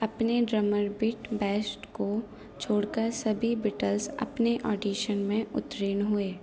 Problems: background sounds at intervals